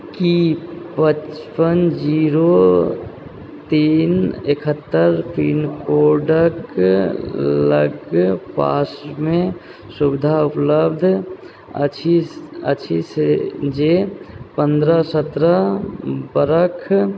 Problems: background conversations at intervals